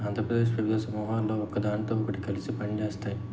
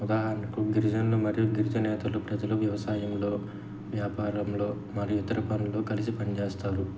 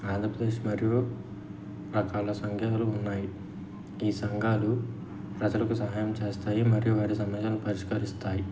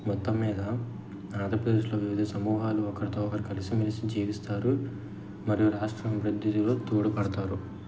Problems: none marked